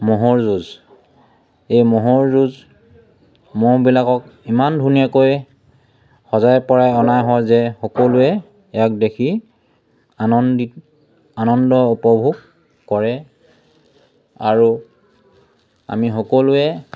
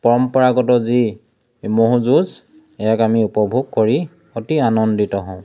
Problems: none marked